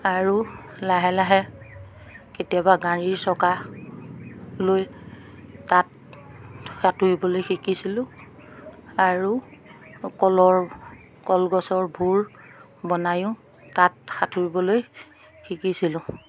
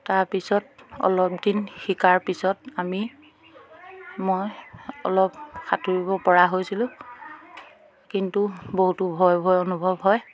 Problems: background sounds at intervals, background conversations at intervals